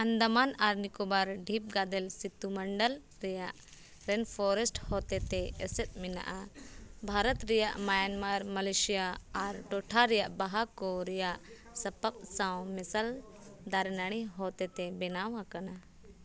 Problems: background sounds at intervals